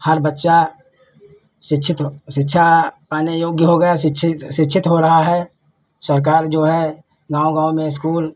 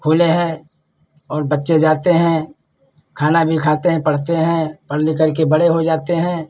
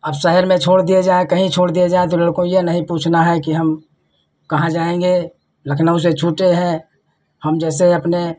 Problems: none marked